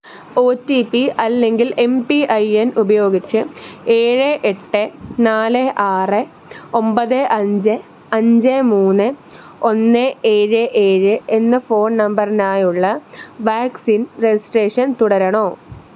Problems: background sounds at intervals